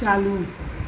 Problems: constant background noise, low volume